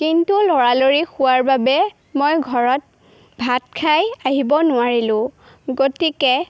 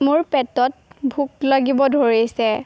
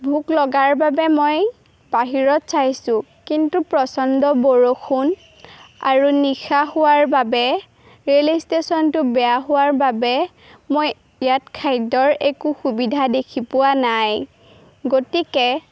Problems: none marked